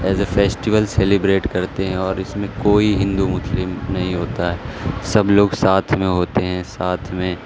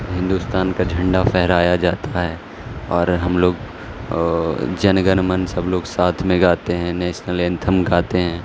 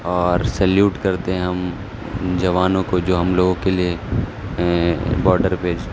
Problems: constant background noise